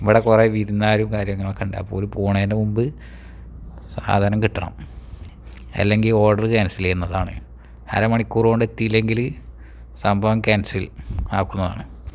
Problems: none marked